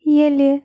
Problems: constant background noise